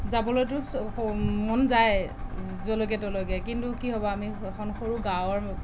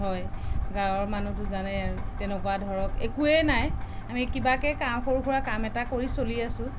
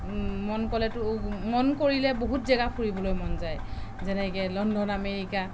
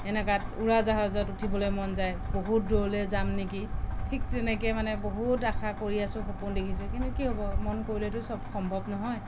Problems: background conversations at intervals